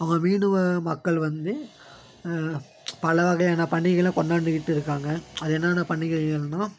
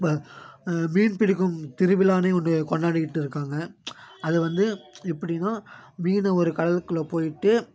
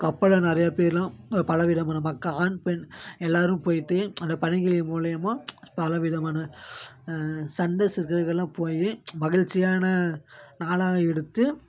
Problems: constant background noise